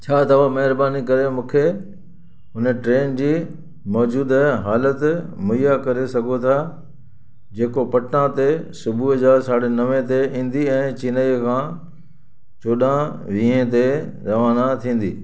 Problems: constant background noise, echo